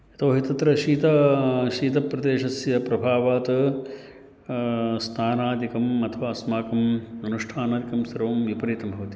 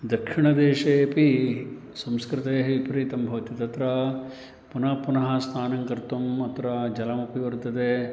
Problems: constant background noise